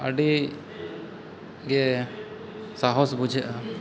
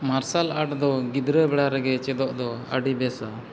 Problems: background sounds at intervals